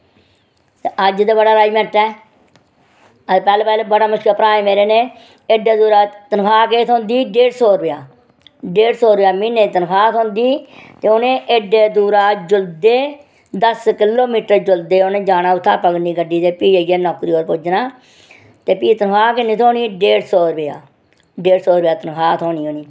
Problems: none marked